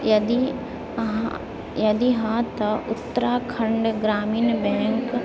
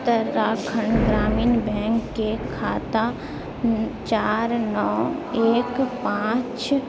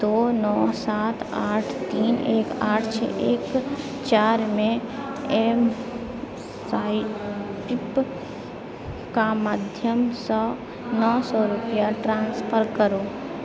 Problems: continuous background conversations, low volume